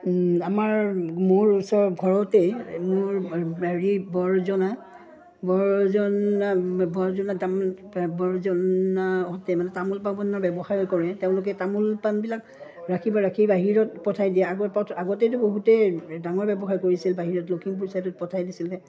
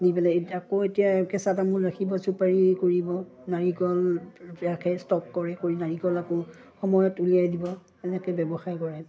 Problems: background sounds at intervals